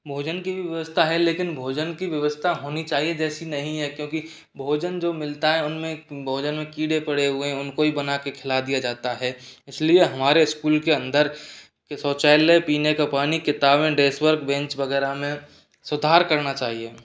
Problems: none marked